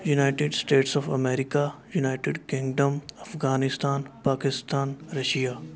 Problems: continuous background conversations